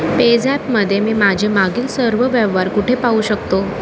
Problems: constant background noise